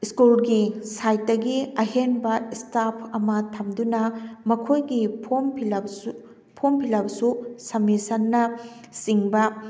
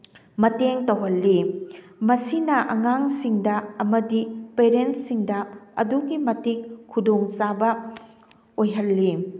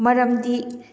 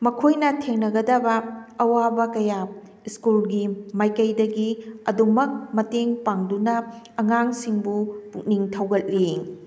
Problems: background sounds at intervals